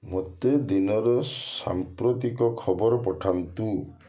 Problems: none marked